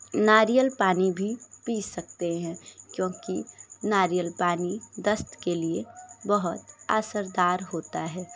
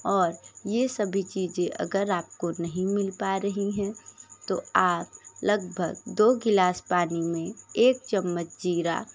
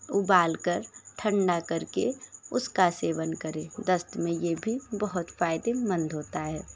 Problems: constant background noise, background conversations at intervals